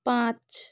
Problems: none marked